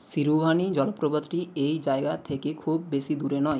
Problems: constant background noise